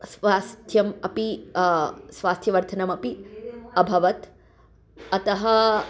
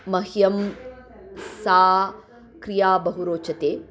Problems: background conversations at intervals